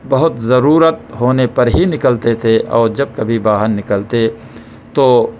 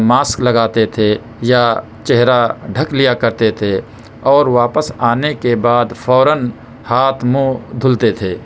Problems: background sounds at intervals